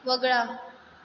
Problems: background sounds at intervals